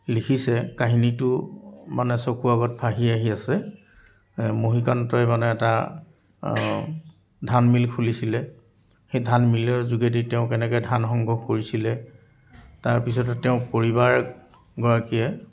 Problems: background sounds at intervals